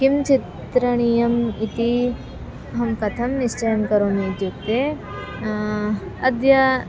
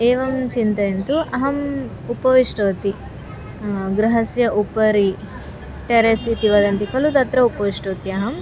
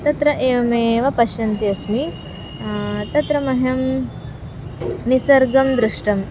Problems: constant background noise, continuous background conversations